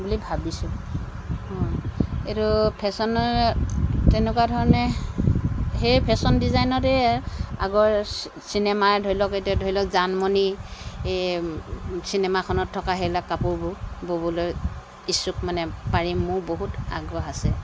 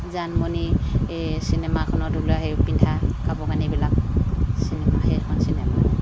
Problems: constant background noise